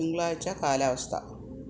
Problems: none marked